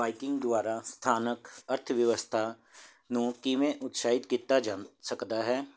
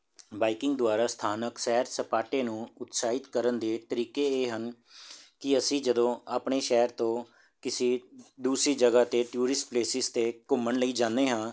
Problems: none marked